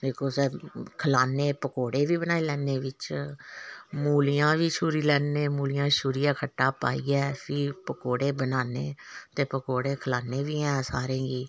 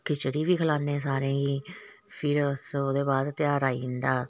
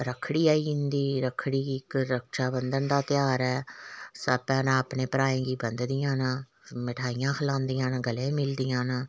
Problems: none marked